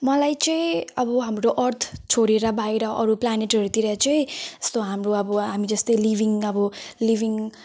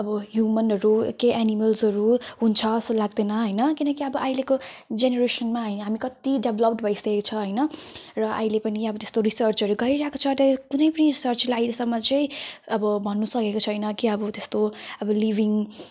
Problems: none marked